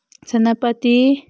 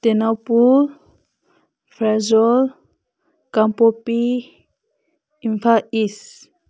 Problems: constant background noise